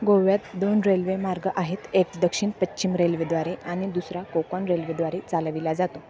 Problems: constant background noise, continuous background conversations